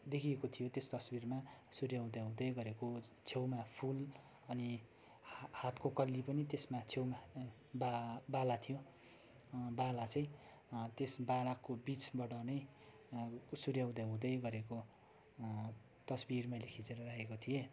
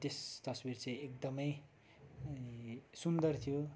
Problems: background sounds at intervals